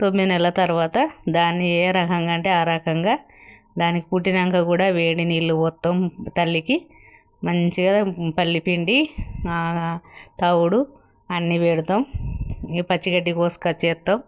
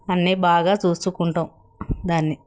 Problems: none marked